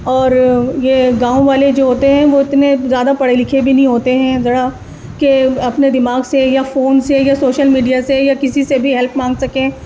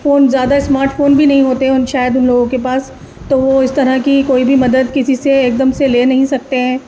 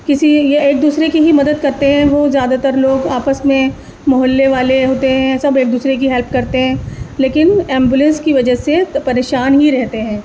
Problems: constant background noise